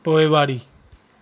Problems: constant background noise